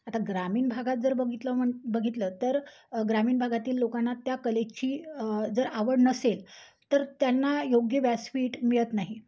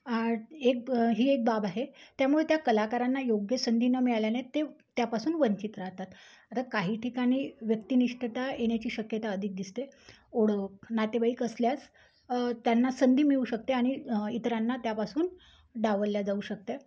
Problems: background sounds at intervals